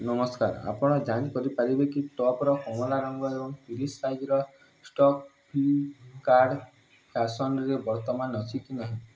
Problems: none marked